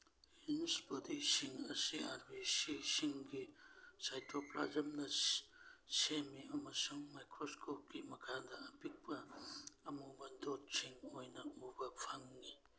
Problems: background sounds at intervals